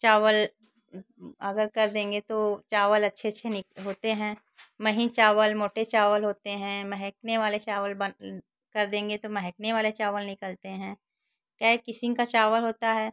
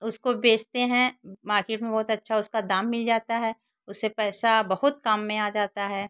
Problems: constant background noise, background conversations at intervals